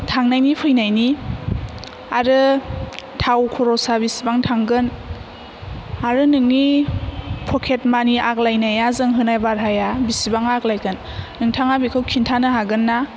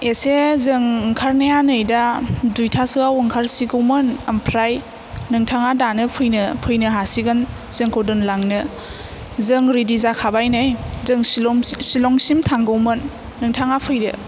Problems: none marked